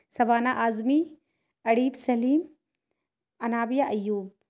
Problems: none marked